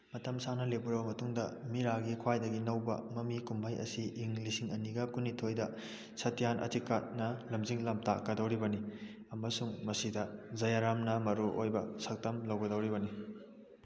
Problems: background conversations at intervals